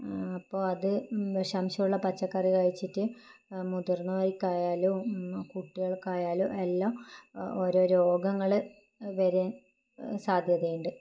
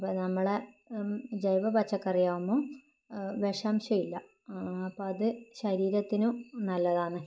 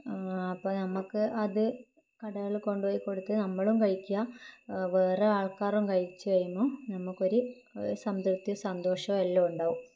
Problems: low volume